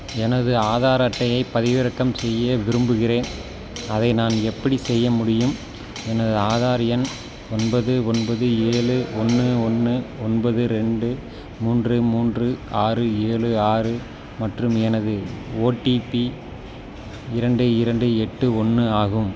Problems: constant background noise